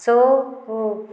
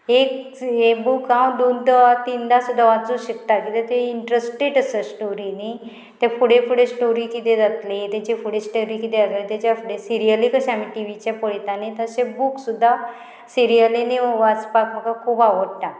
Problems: constant background noise